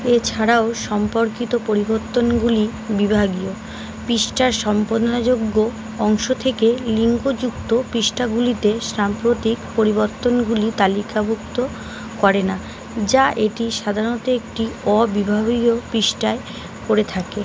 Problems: none marked